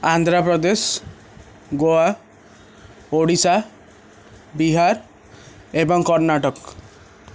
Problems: none marked